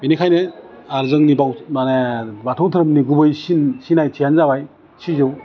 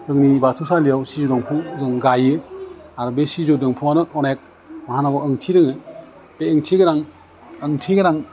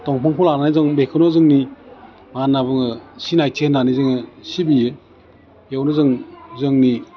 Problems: constant background noise